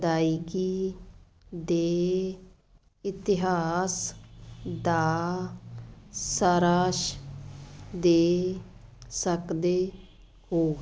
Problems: none marked